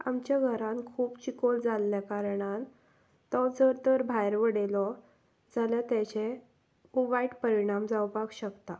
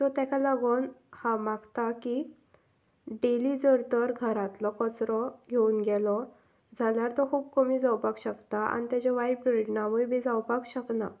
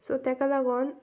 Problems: none marked